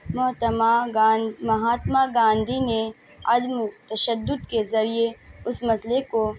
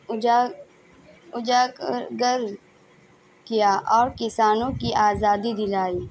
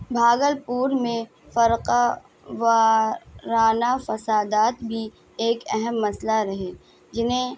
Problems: constant background noise, background conversations at intervals